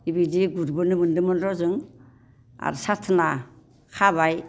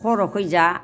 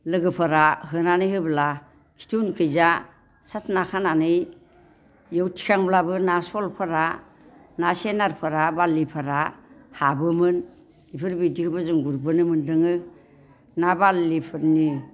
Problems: constant background noise